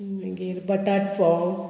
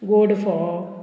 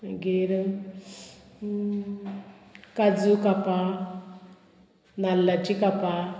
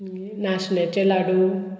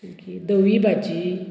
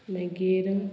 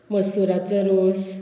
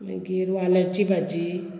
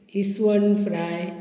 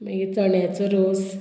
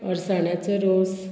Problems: constant background noise, continuous background conversations